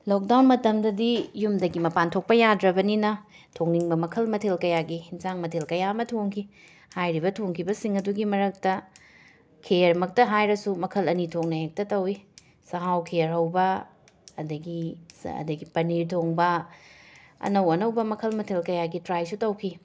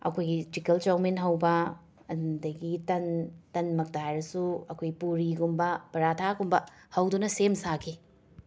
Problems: background sounds at intervals